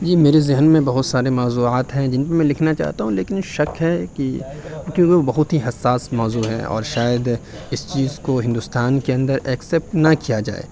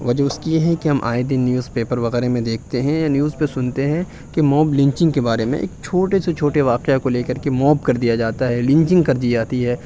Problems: constant background noise